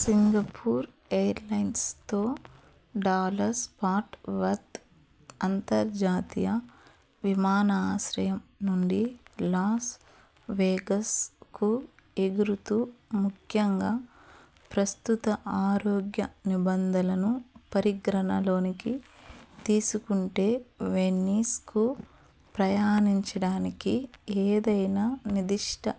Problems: background sounds at intervals, background conversations at intervals